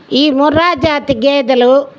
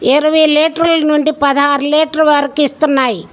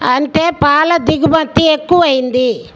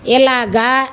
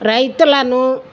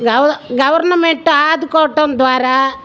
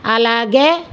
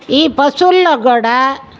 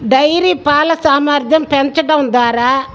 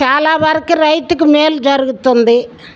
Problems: background sounds at intervals